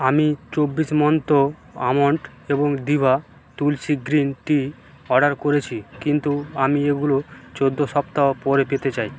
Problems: constant background noise